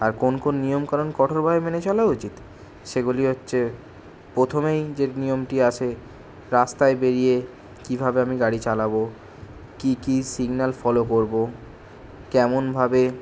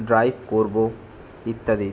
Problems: none marked